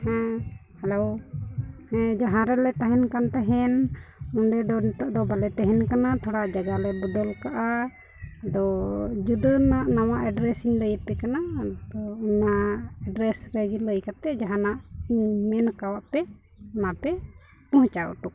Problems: constant background noise, low volume